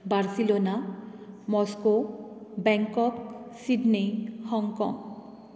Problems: constant background noise